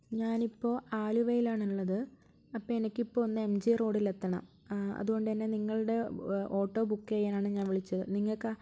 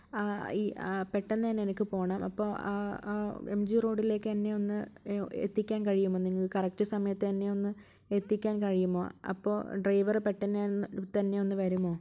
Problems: low volume